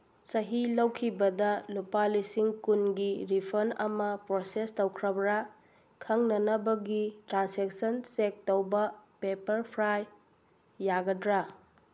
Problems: none marked